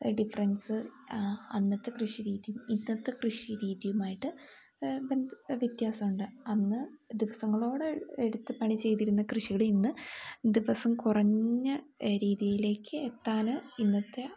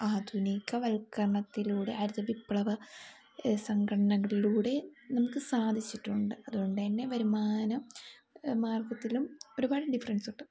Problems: none marked